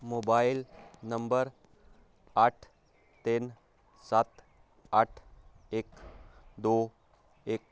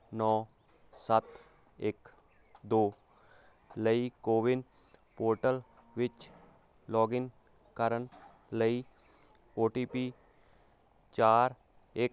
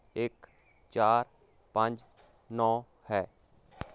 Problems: constant background noise